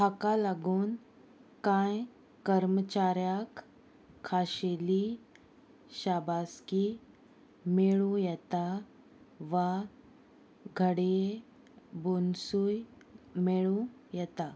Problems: constant background noise